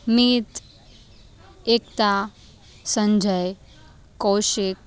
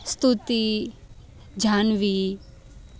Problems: constant background noise